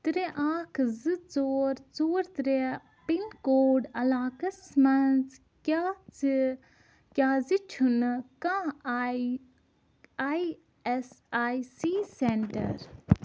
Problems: none marked